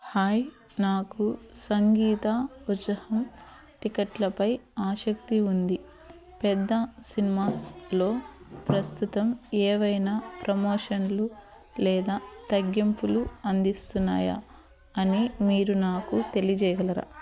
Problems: constant background noise